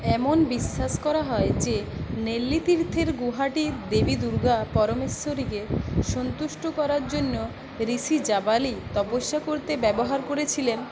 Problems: constant background noise